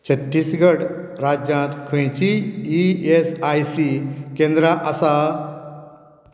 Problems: background sounds at intervals